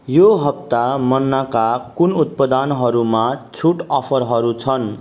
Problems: background sounds at intervals